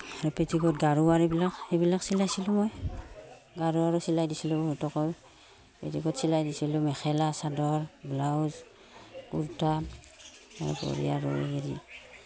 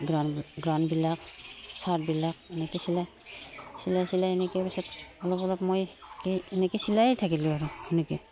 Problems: background sounds at intervals